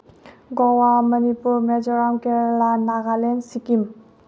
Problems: low volume